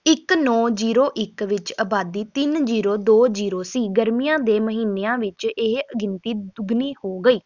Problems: background sounds at intervals